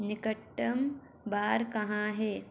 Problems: none marked